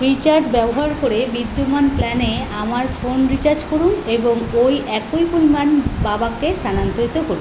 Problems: constant background noise